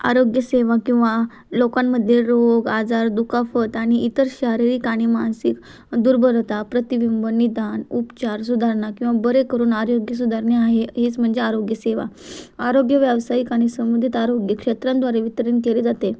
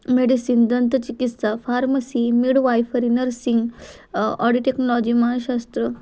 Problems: constant background noise, background conversations at intervals